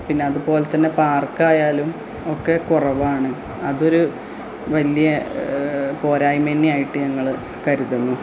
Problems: constant background noise, low volume